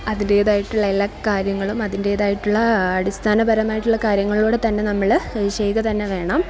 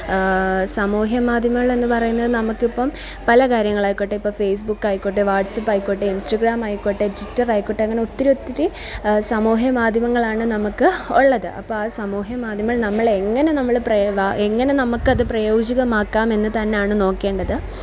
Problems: constant background noise, background conversations at intervals